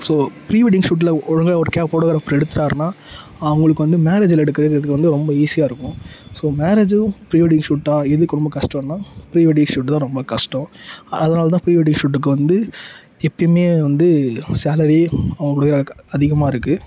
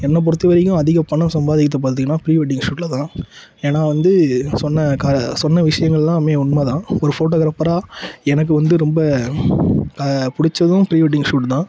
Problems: background sounds at intervals